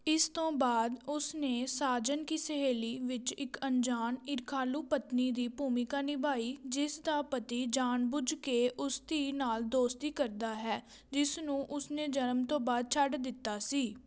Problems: background conversations at intervals